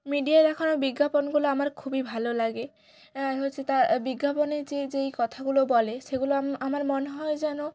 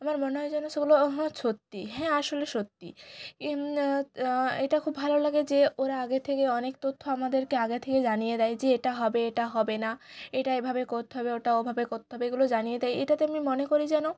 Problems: background conversations at intervals